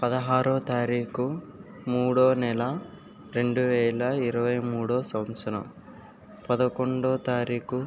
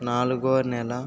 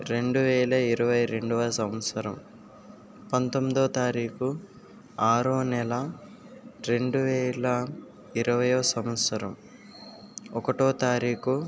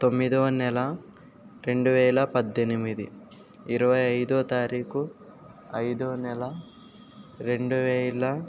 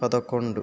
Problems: constant background noise